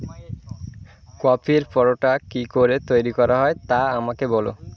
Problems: constant background noise, background conversations at intervals